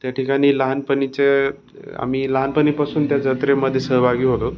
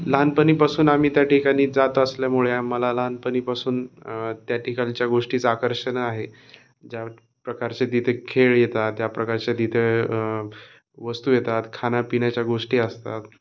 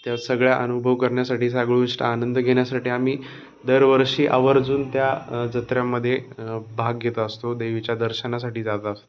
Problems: background sounds at intervals